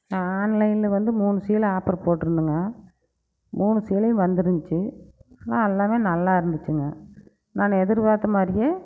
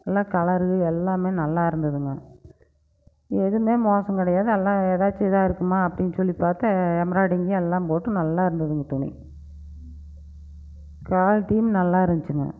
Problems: background sounds at intervals